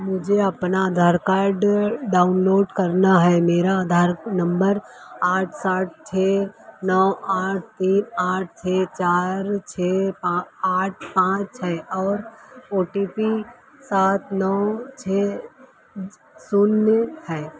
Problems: constant background noise